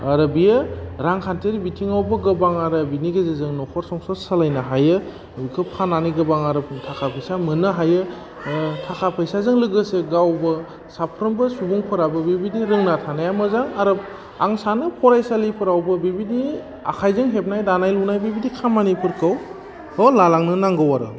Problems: low volume